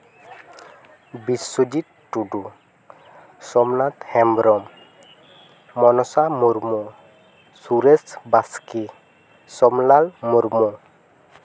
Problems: none marked